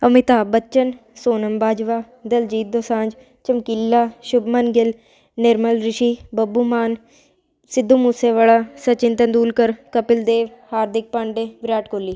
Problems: constant background noise